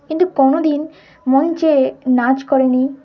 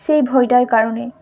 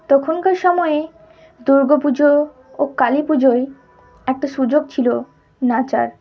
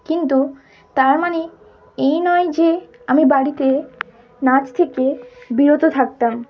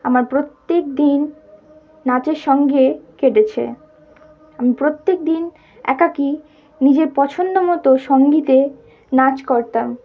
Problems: background sounds at intervals